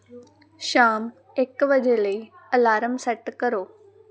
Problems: constant background noise